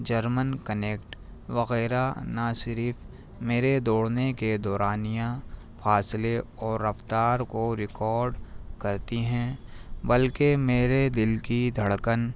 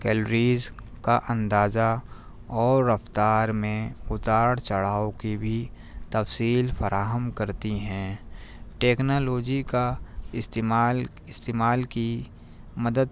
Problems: none marked